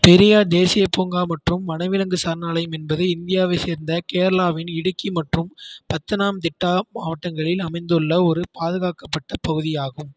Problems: none marked